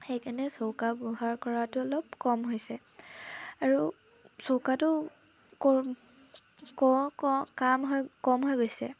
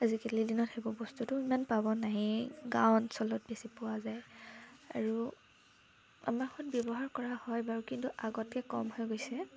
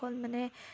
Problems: constant background noise